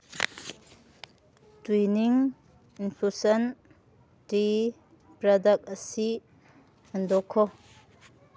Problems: background sounds at intervals